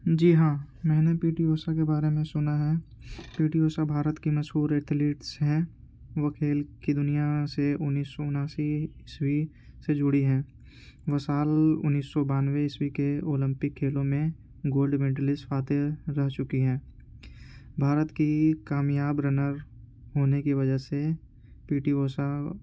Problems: constant background noise, low volume